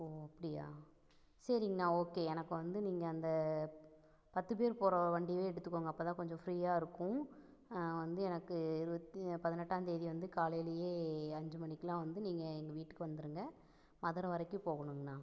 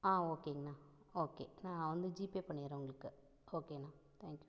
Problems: none marked